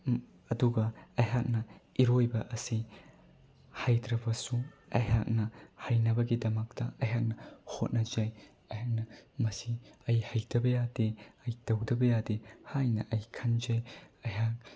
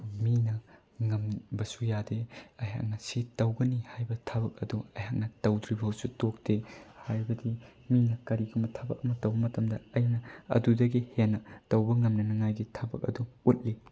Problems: none marked